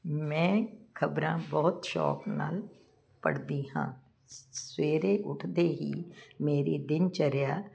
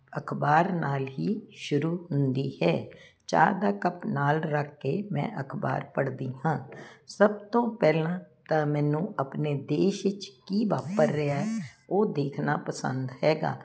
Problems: none marked